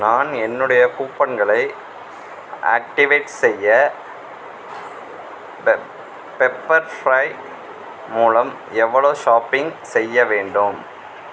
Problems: background sounds at intervals